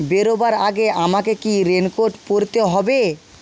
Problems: constant background noise